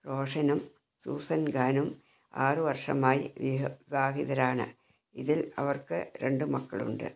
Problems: low volume